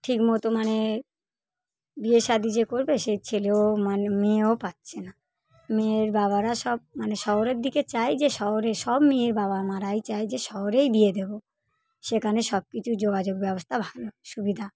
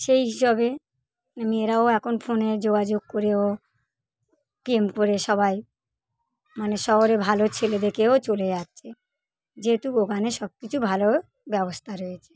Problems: none marked